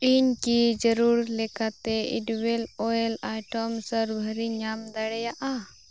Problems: constant background noise